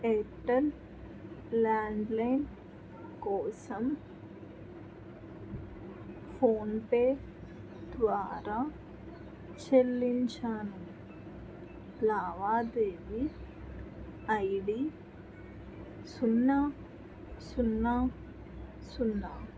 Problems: constant background noise, background conversations at intervals